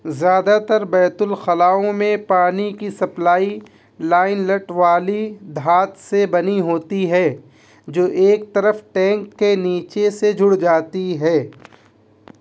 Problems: constant background noise